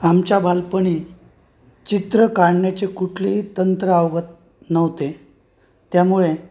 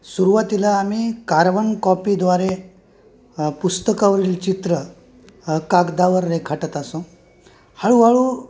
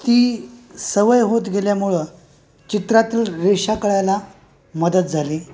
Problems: constant background noise